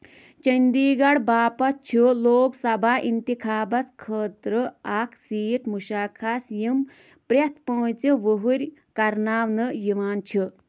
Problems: constant background noise